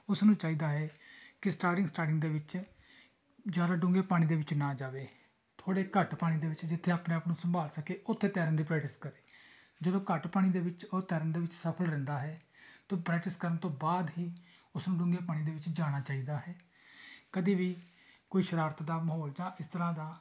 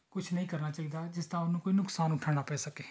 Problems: background sounds at intervals, background conversations at intervals